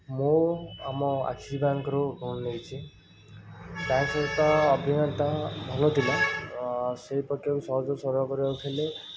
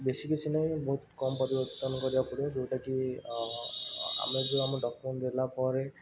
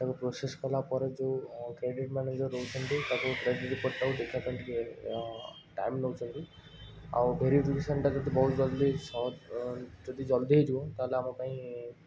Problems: constant background noise